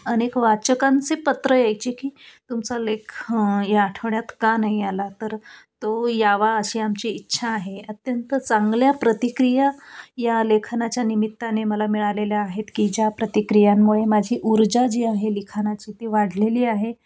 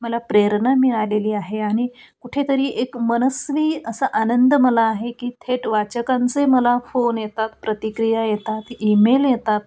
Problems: constant background noise, background conversations at intervals